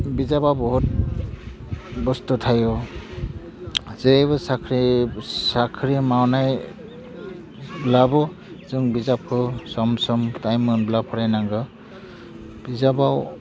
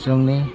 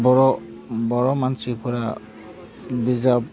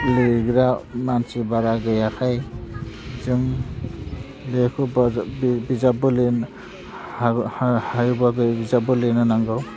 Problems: constant background noise